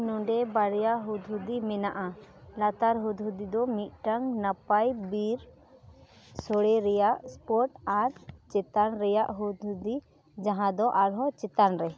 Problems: background sounds at intervals, background conversations at intervals